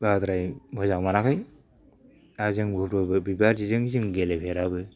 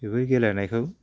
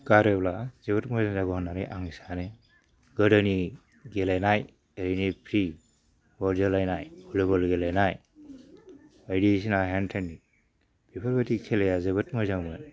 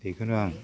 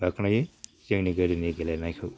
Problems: low volume